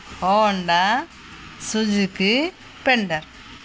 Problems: none marked